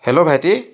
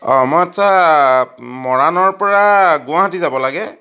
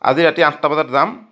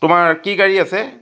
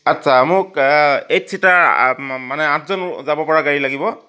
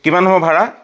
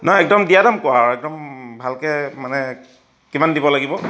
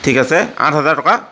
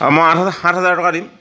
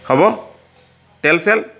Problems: none marked